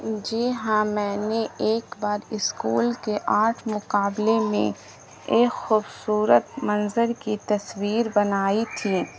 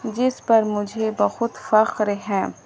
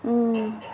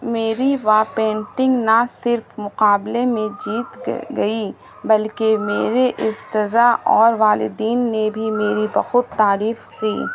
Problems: constant background noise